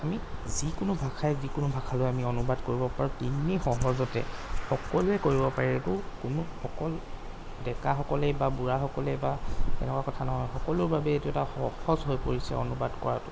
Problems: background sounds at intervals